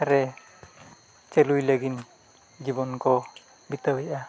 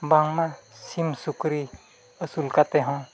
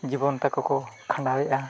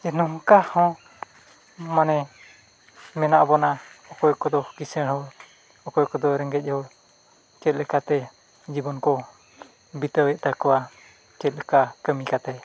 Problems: constant background noise, background conversations at intervals